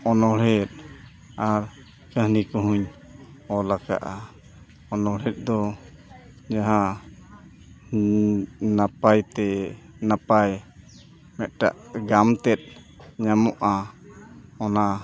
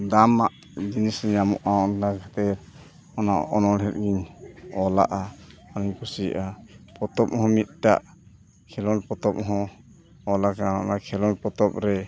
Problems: constant background noise, continuous background conversations